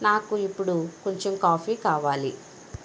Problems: constant background noise